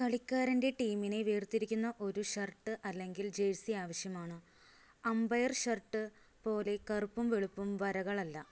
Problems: low volume